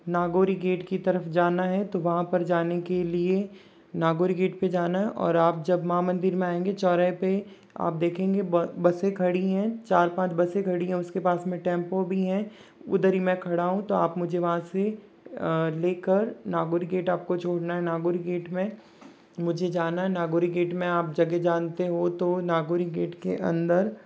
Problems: background sounds at intervals